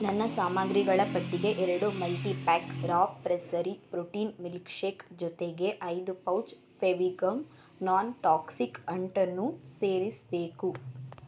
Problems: none marked